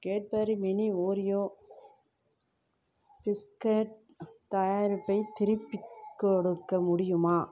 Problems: constant background noise